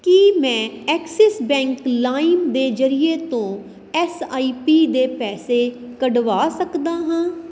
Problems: none marked